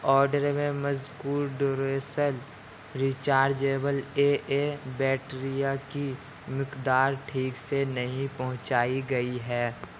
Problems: constant background noise